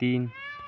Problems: none marked